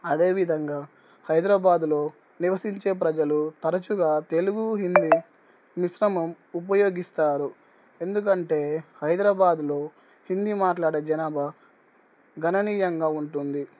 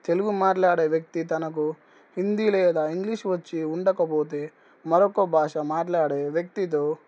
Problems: none marked